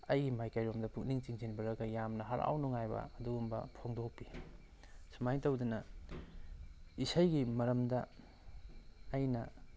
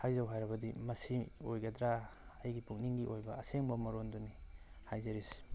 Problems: low volume